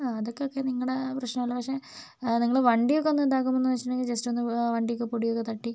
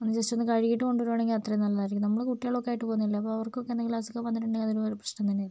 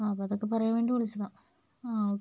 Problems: low volume